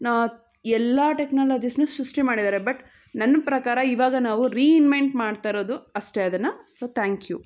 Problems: background conversations at intervals